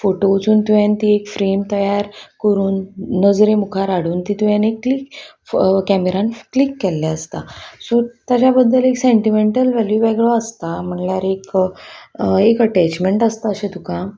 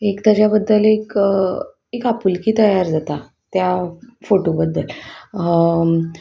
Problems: constant background noise, background conversations at intervals